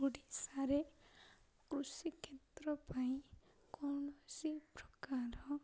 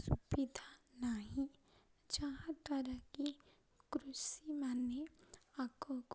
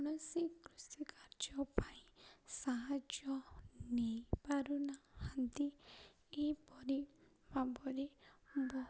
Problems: low volume